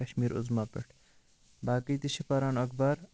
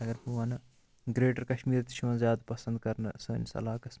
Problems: none marked